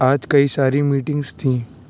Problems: none marked